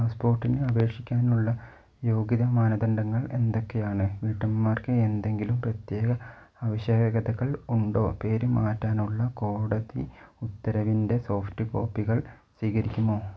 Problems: none marked